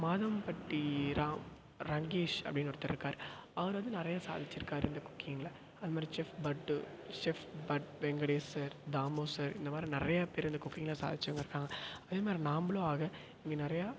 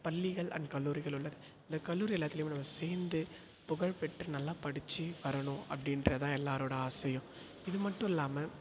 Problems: echo